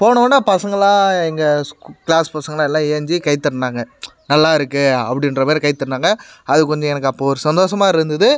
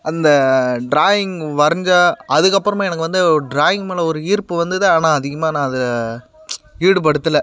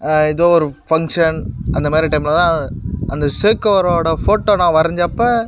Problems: constant background noise